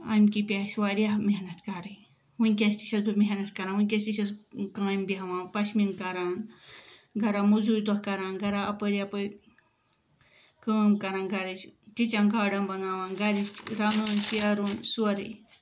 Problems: background sounds at intervals